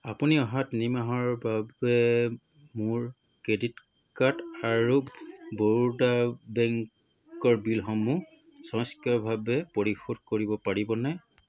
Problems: constant background noise